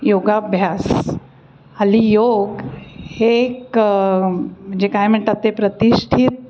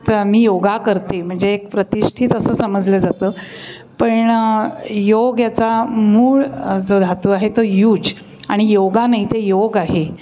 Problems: constant background noise, continuous background conversations